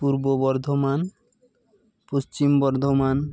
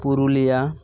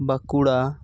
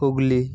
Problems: constant background noise